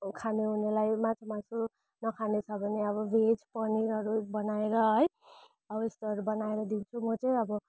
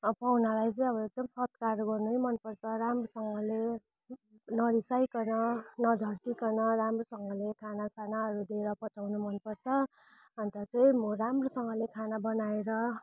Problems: none marked